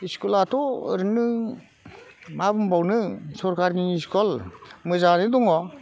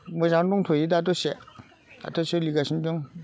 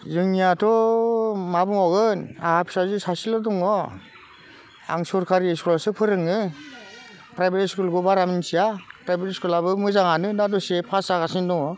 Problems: constant background noise